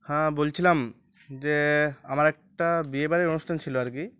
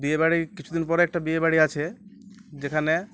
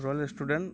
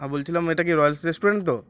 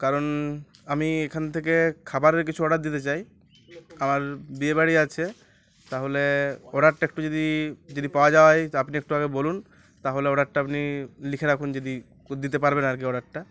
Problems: constant background noise